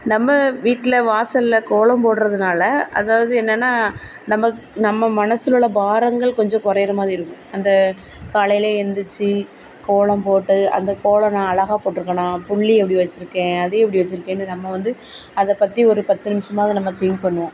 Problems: none marked